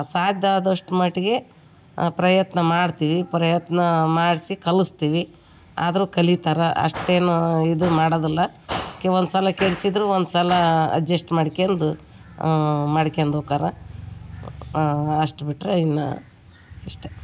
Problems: background sounds at intervals